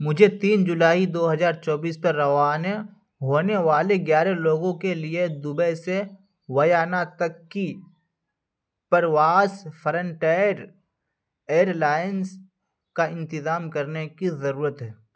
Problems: none marked